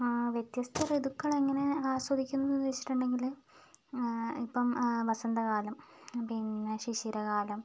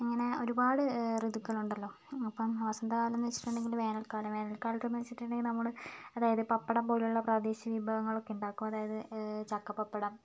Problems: low volume